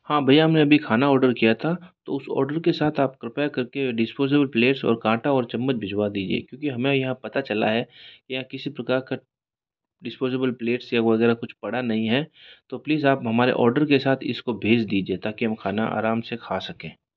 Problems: background sounds at intervals